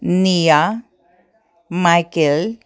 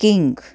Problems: none marked